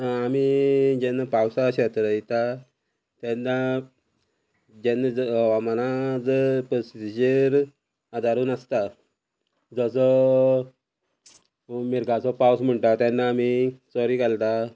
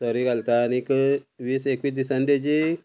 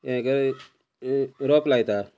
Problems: constant background noise